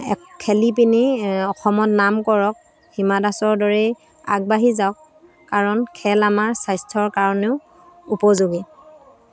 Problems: constant background noise